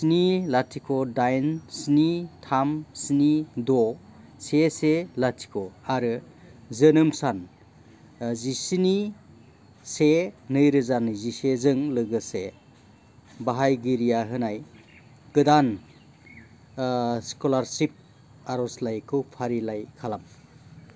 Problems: constant background noise